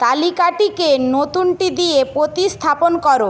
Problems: none marked